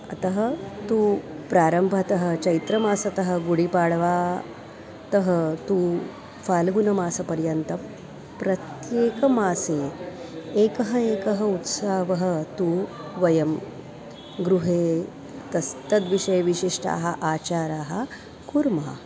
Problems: constant background noise, continuous background conversations